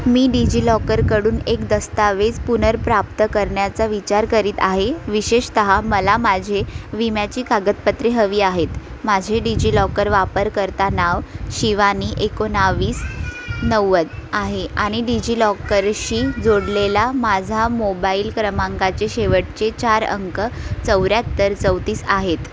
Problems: constant background noise, background conversations at intervals